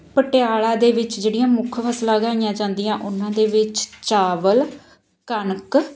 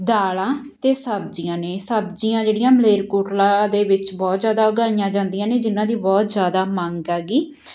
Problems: background sounds at intervals